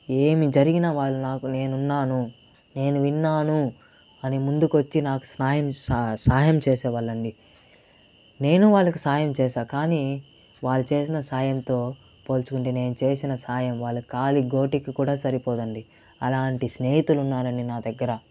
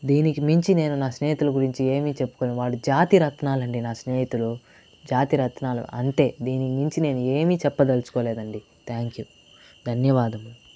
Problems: constant background noise